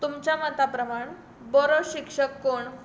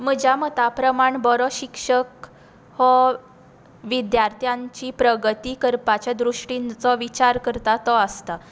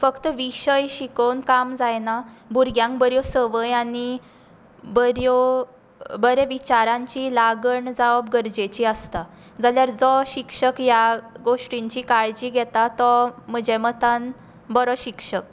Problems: background sounds at intervals